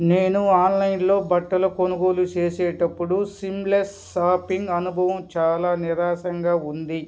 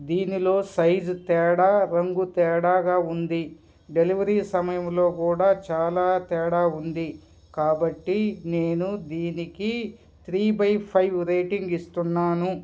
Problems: none marked